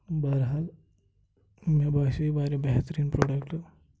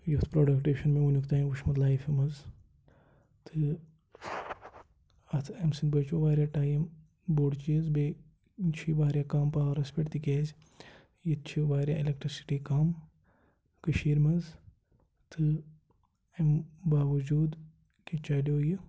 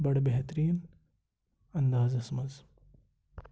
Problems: background sounds at intervals